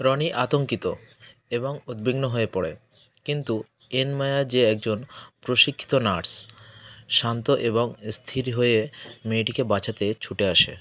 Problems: constant background noise